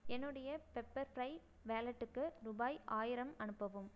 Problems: low volume